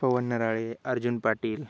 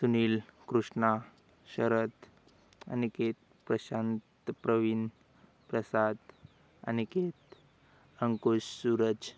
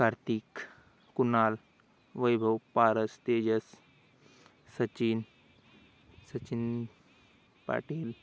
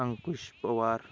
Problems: background sounds at intervals